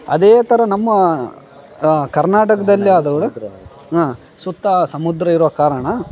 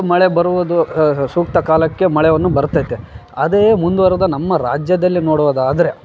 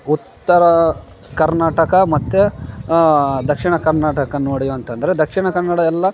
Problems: background conversations at intervals